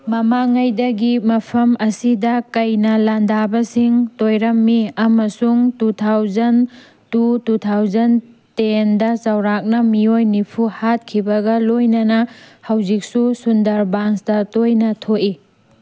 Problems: background sounds at intervals